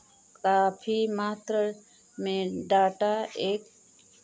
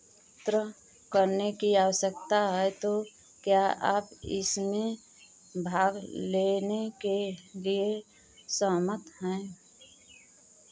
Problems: none marked